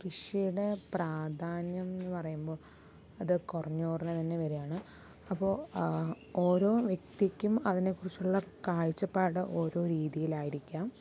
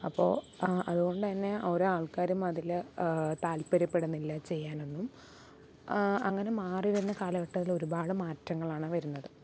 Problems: low volume